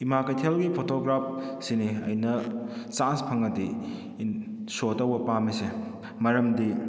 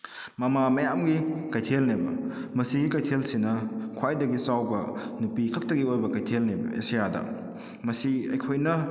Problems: echo